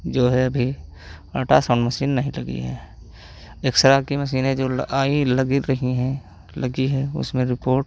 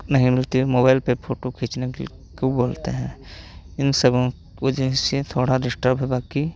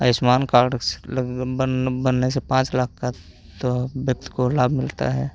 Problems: constant background noise